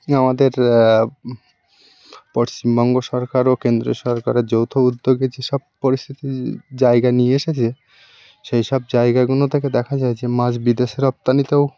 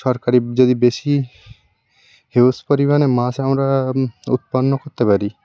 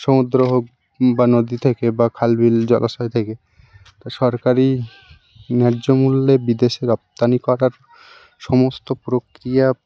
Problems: none marked